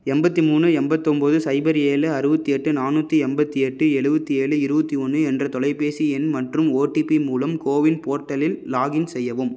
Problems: none marked